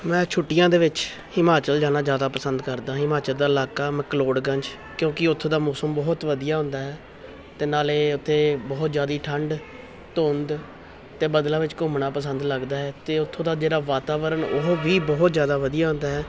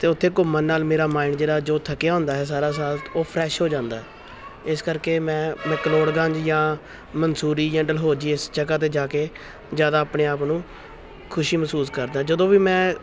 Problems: none marked